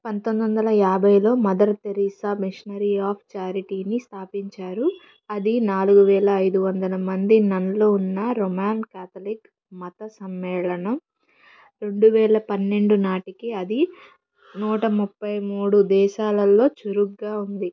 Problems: background sounds at intervals, low volume